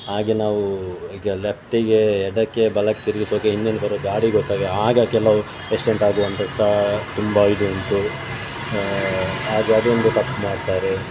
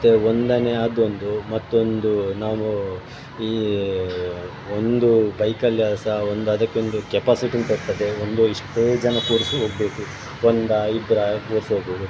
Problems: constant background noise